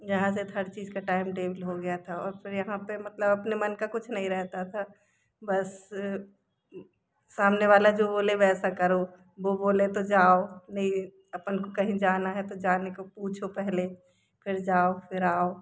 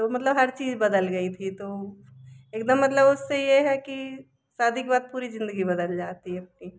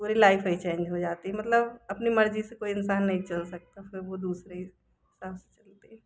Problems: constant background noise